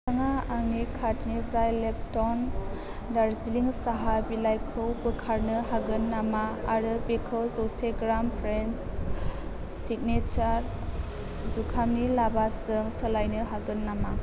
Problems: low volume